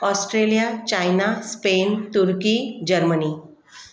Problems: constant background noise, echo